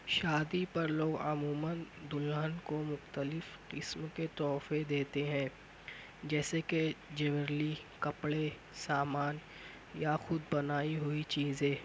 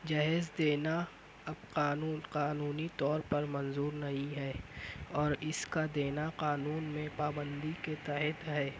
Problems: constant background noise